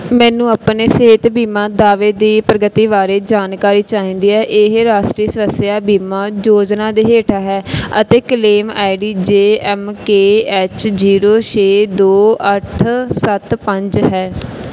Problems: background sounds at intervals